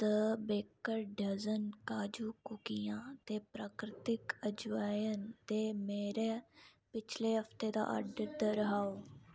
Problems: background sounds at intervals